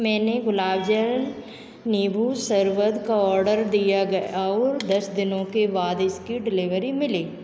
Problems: constant background noise, echo